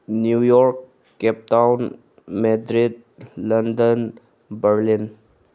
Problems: none marked